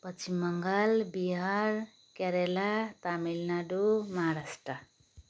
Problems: constant background noise